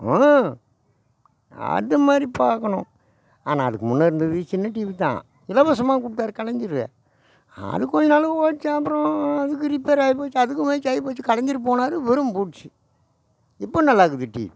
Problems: none marked